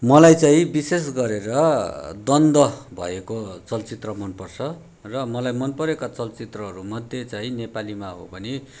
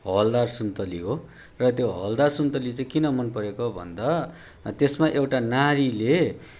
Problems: background sounds at intervals